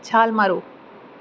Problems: none marked